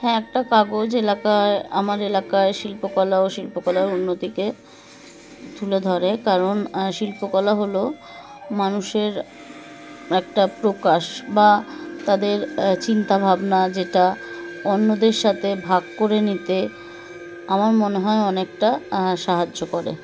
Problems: constant background noise, continuous background conversations